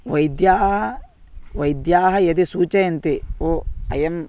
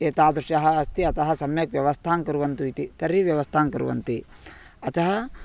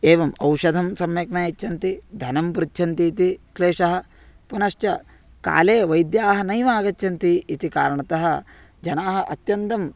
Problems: background sounds at intervals